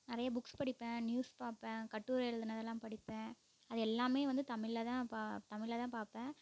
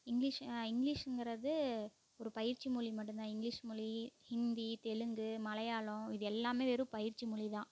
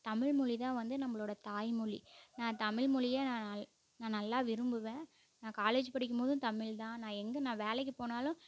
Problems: constant background noise, low volume